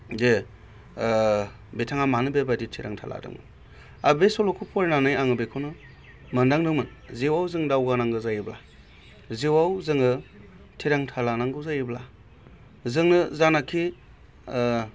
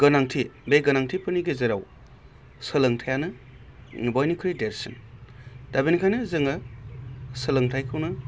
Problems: constant background noise